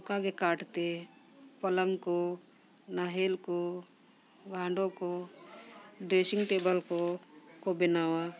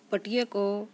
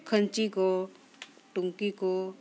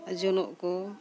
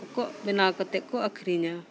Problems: background sounds at intervals, background conversations at intervals